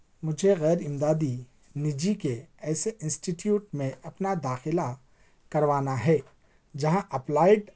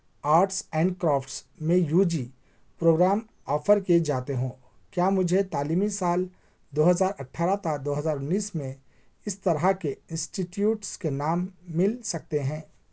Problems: none marked